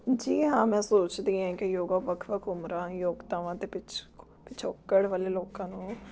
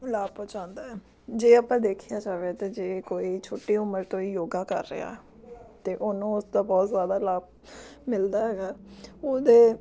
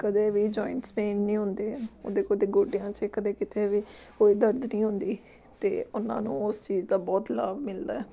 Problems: background sounds at intervals, background conversations at intervals